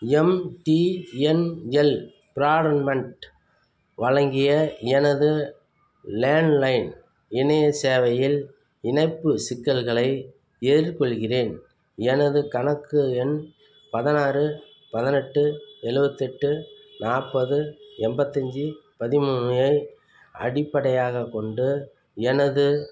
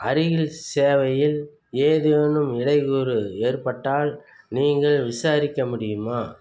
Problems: none marked